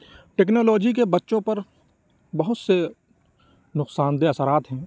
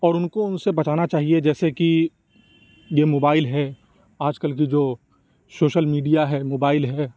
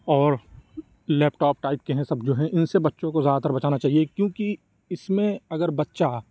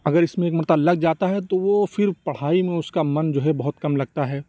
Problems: none marked